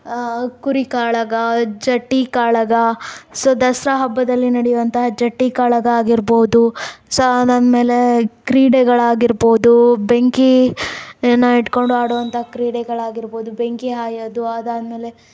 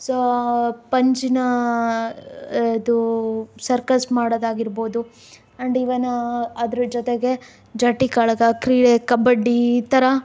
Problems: background sounds at intervals